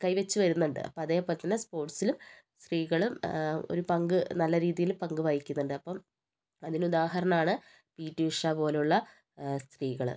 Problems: low volume